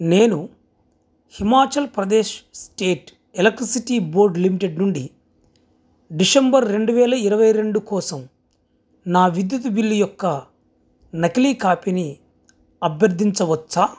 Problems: background sounds at intervals